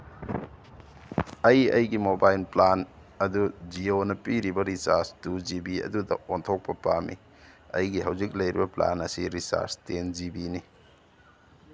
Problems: none marked